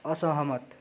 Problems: none marked